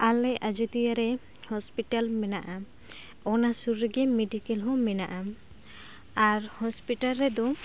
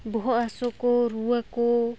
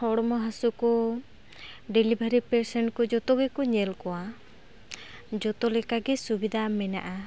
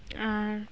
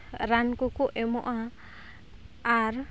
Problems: constant background noise